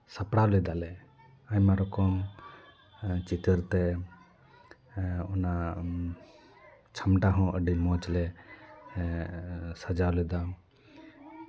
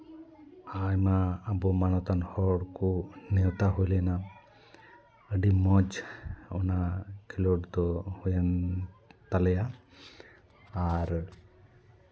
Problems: background conversations at intervals